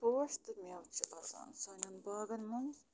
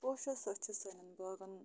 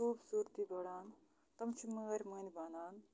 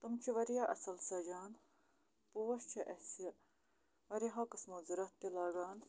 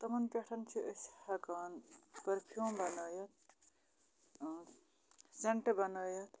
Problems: none marked